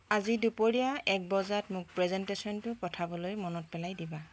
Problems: constant background noise